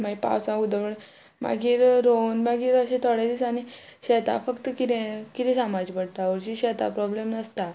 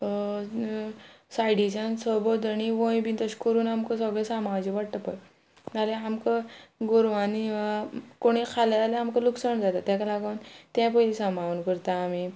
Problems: none marked